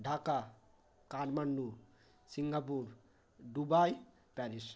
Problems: none marked